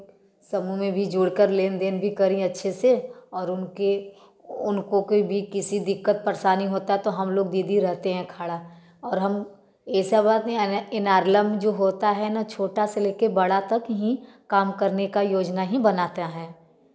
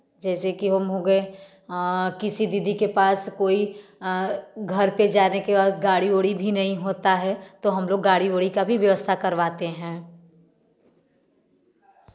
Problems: background sounds at intervals